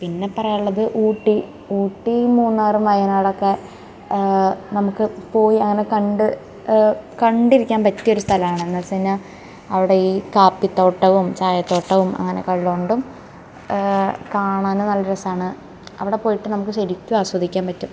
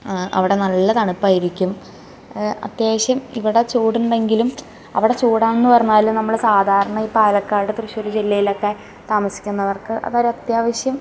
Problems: background sounds at intervals